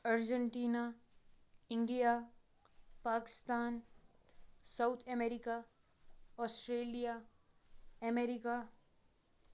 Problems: background sounds at intervals